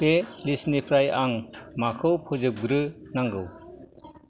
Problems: background sounds at intervals